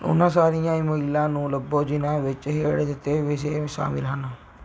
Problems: background sounds at intervals